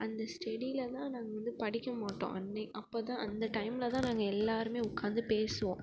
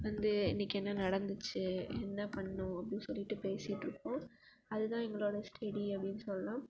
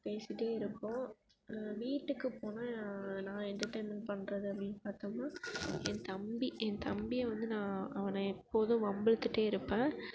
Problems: background sounds at intervals